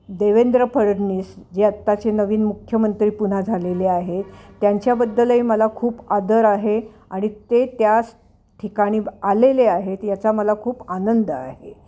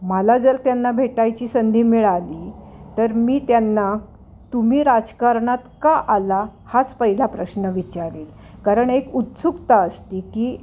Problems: constant background noise, continuous background conversations